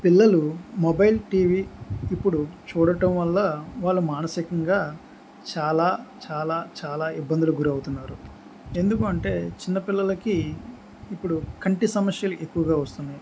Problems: background sounds at intervals